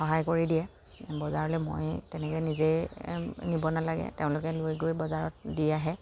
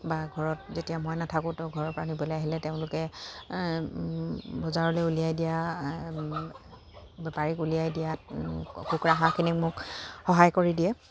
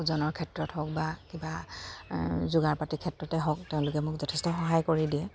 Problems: constant background noise, background conversations at intervals